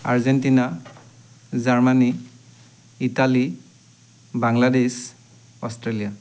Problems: constant background noise